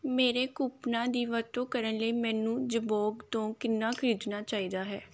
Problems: background sounds at intervals